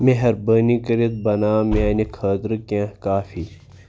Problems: background sounds at intervals